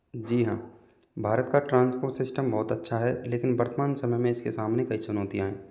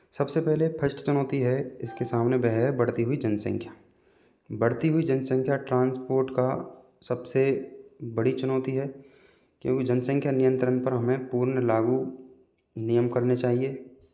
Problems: background sounds at intervals